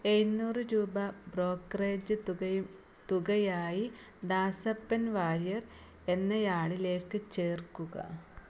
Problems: none marked